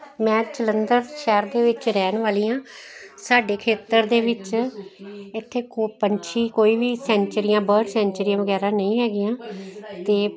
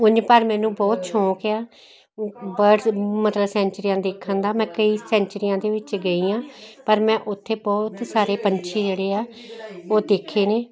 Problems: continuous background conversations